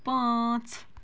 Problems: background sounds at intervals